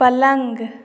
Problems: none marked